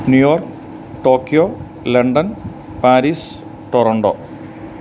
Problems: constant background noise